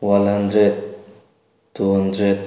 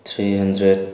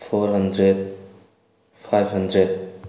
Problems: background sounds at intervals